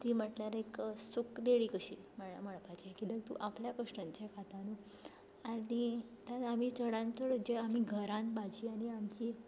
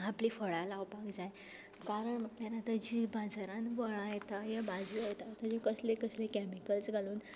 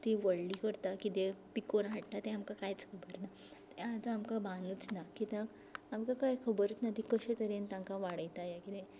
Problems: background sounds at intervals, low volume